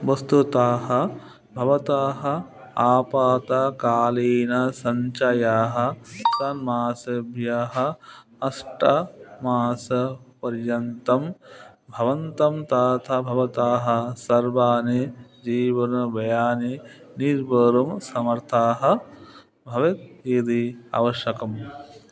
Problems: background sounds at intervals, background conversations at intervals